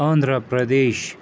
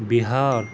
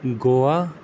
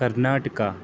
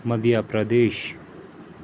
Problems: constant background noise